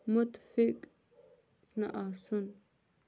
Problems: low volume